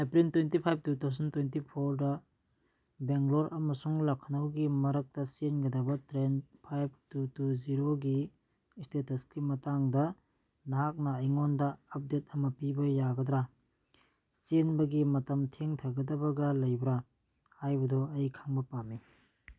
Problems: none marked